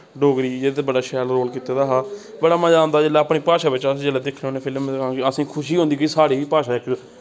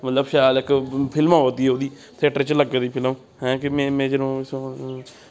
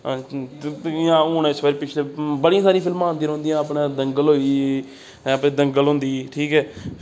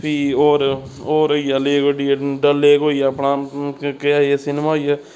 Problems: constant background noise